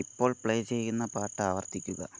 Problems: none marked